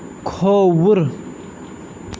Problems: constant background noise